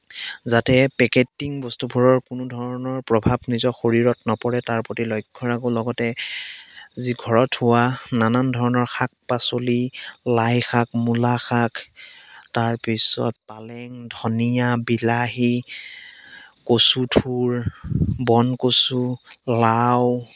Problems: background sounds at intervals